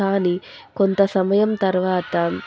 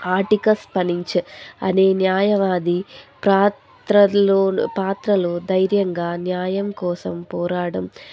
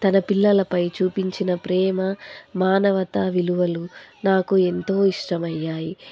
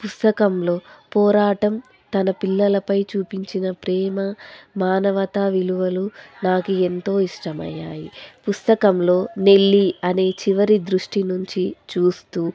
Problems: constant background noise